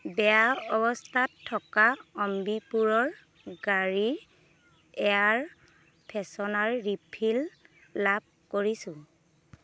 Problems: constant background noise